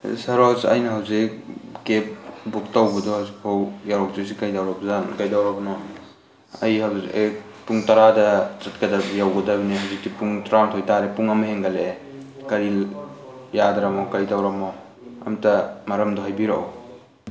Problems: background conversations at intervals